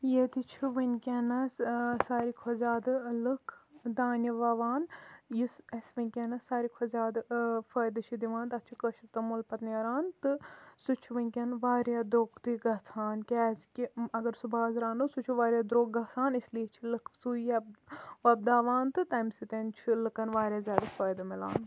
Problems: none marked